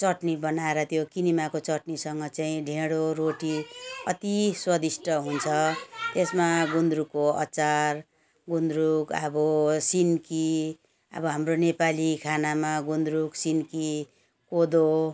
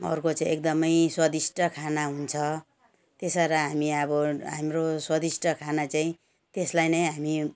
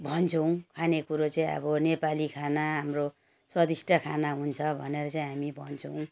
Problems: background sounds at intervals